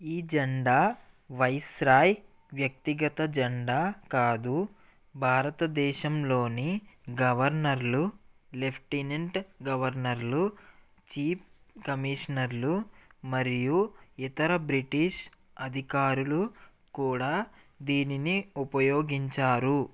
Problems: none marked